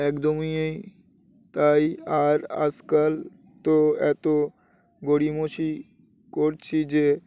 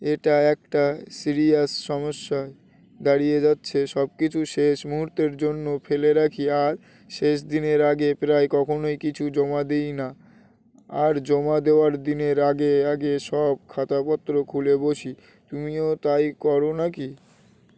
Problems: constant background noise